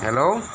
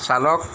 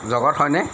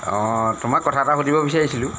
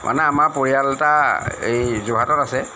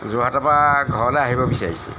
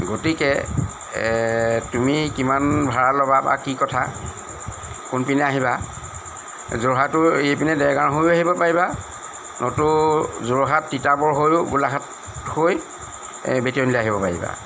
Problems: constant background noise